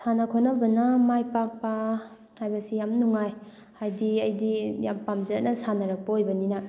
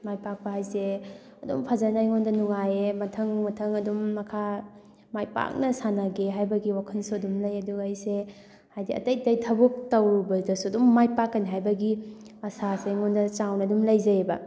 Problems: background sounds at intervals, background conversations at intervals